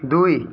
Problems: background conversations at intervals